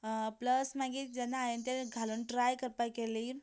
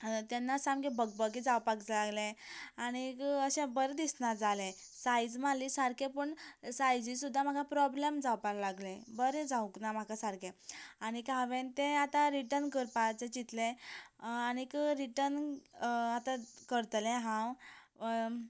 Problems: constant background noise